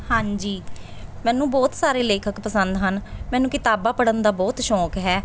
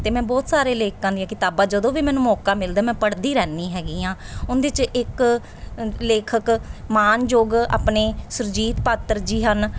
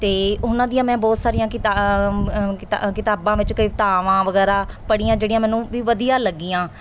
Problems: none marked